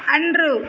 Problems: background sounds at intervals